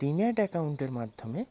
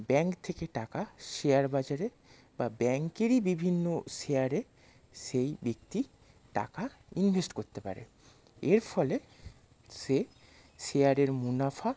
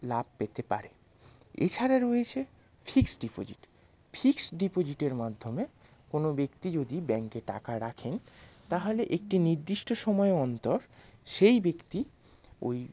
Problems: none marked